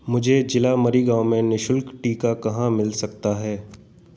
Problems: constant background noise